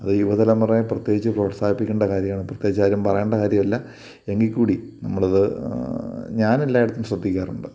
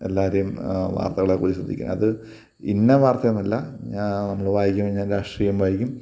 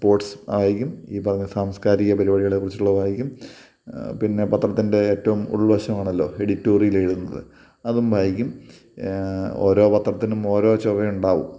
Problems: none marked